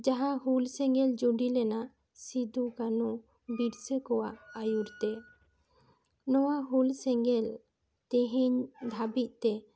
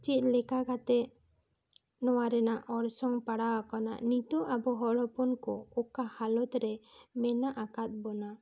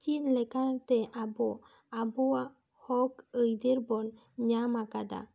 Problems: none marked